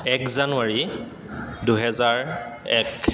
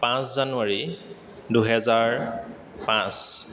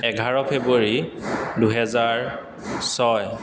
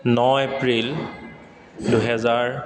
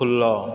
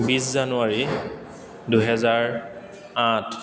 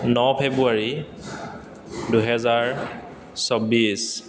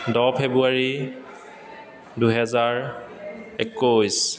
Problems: constant background noise, echo